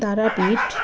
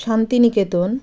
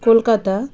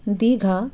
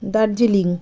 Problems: background sounds at intervals